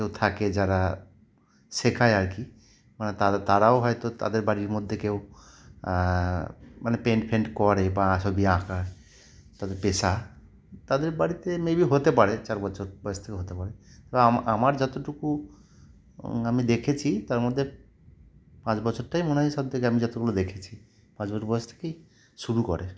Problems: none marked